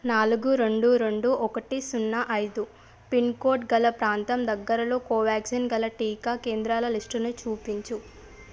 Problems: background sounds at intervals